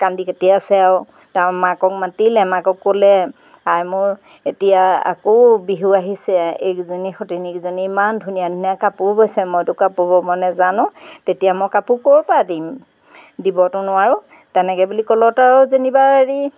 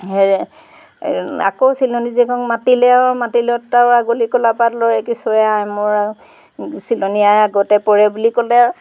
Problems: background sounds at intervals